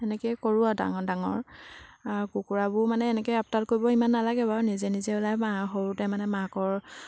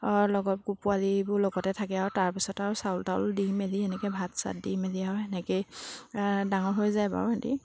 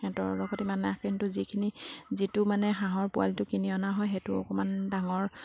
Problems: background sounds at intervals